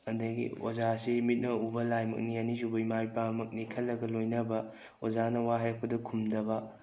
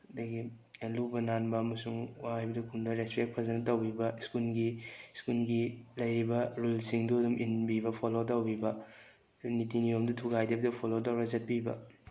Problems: none marked